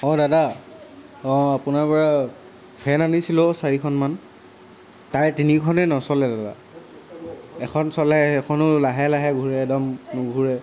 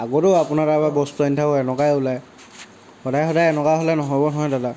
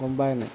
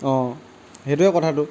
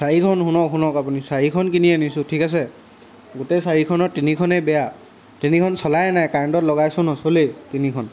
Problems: background sounds at intervals